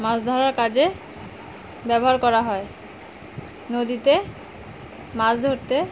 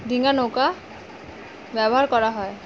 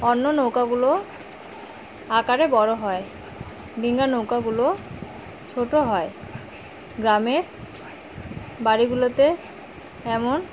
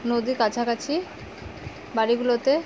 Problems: none marked